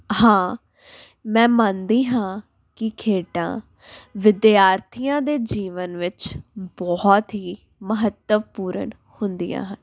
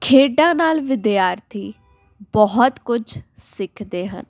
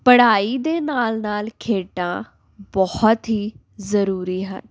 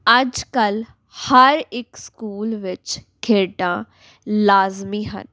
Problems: none marked